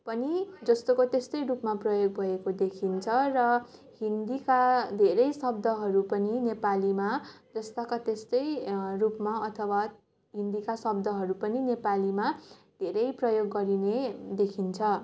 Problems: continuous background conversations